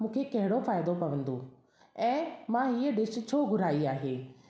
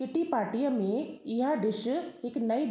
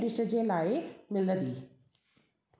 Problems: constant background noise, echo